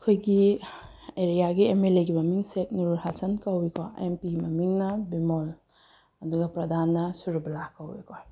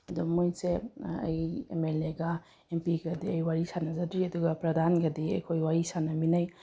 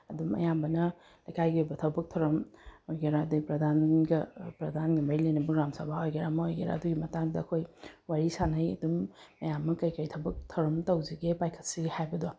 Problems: none marked